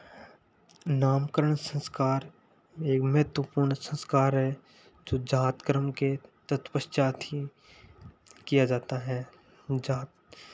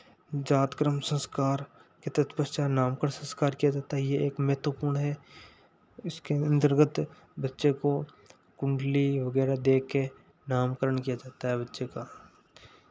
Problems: none marked